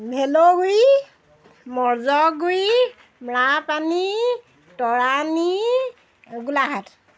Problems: none marked